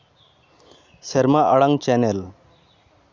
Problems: none marked